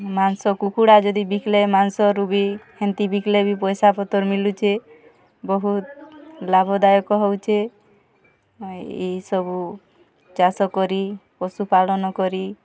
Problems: none marked